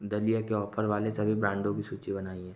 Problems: none marked